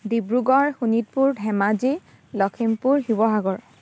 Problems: background sounds at intervals